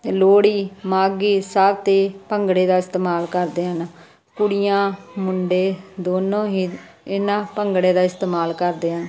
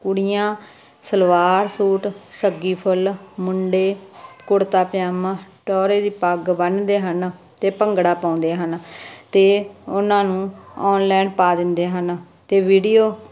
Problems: constant background noise